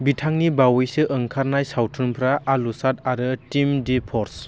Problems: constant background noise